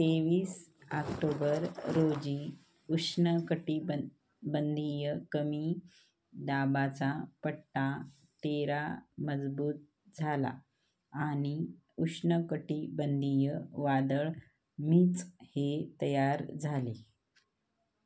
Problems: none marked